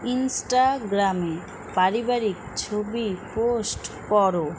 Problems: constant background noise